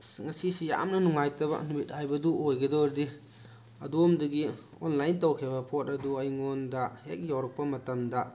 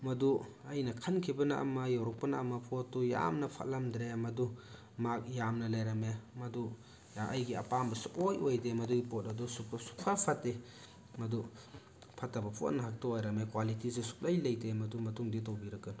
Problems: background sounds at intervals